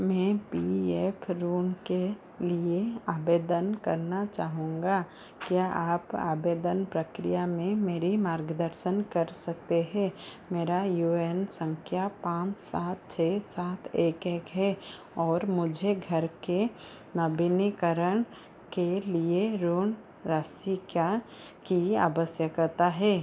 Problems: constant background noise